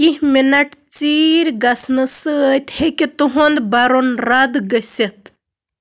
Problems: constant background noise